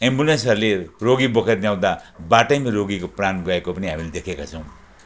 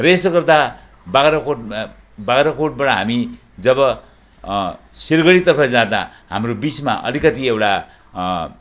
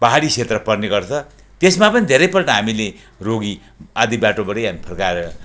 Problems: none marked